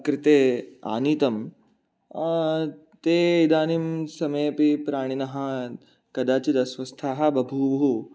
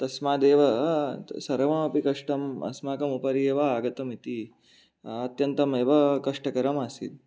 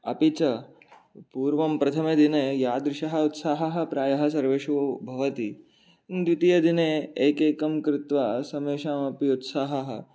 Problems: none marked